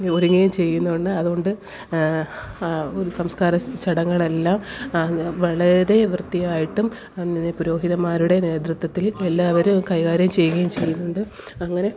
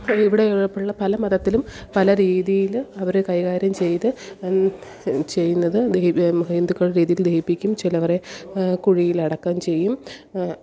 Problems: background sounds at intervals, background conversations at intervals, low volume